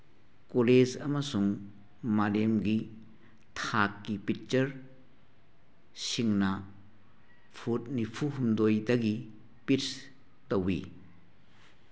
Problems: background sounds at intervals